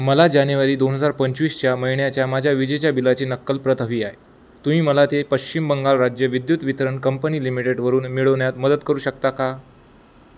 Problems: none marked